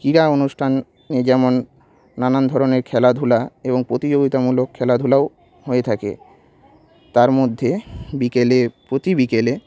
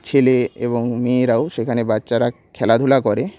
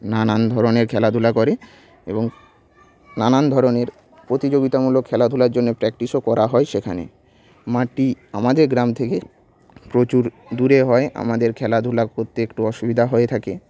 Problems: background sounds at intervals, continuous background conversations